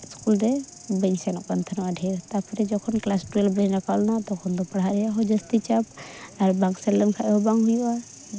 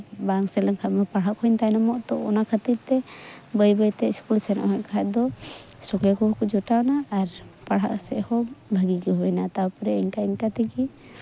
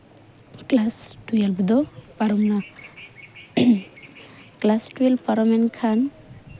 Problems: constant background noise, background conversations at intervals